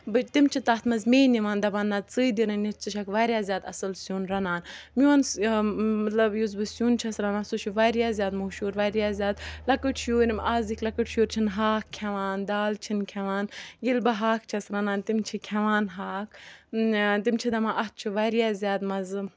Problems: background sounds at intervals